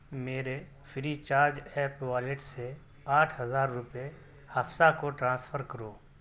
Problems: none marked